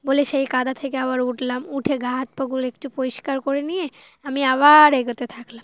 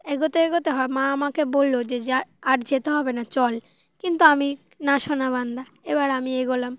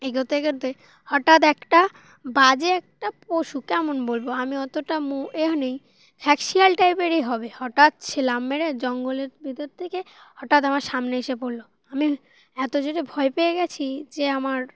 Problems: constant background noise